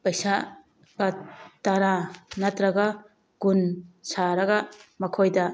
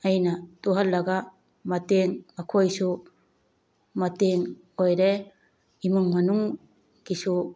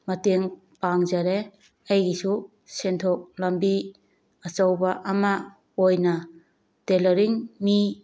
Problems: none marked